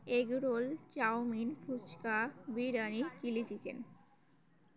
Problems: none marked